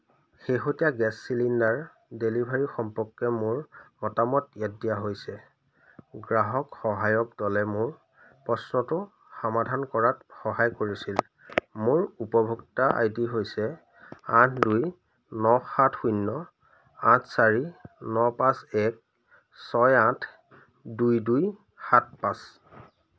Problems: constant background noise